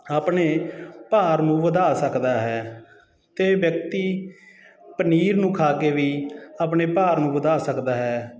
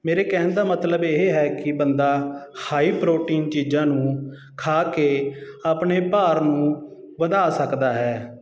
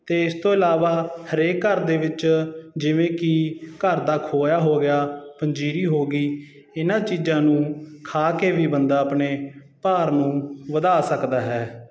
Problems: constant background noise